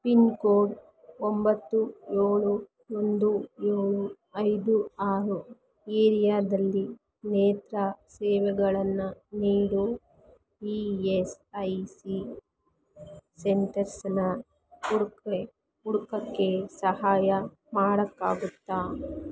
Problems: background sounds at intervals